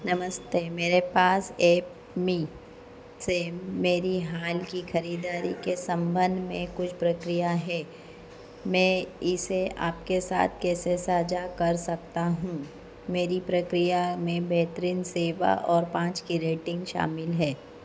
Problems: constant background noise